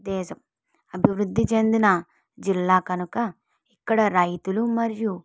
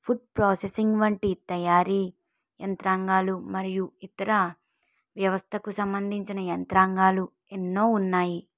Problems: none marked